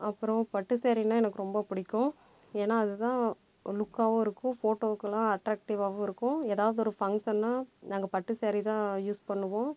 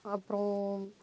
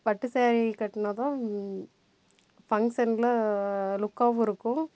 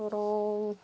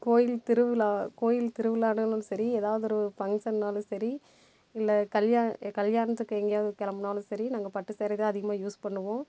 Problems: background sounds at intervals